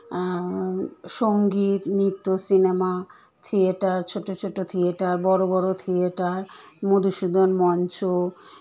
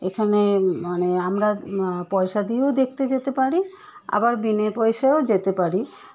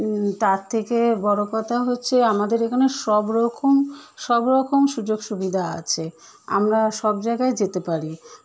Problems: none marked